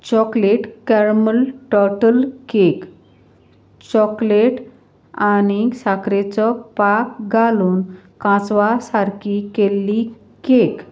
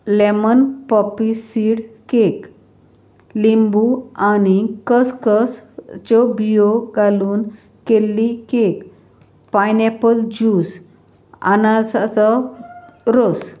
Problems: none marked